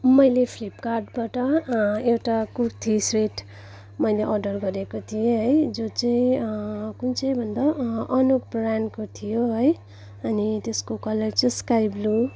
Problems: background sounds at intervals, background conversations at intervals